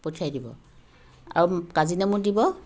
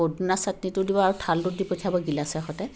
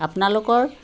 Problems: constant background noise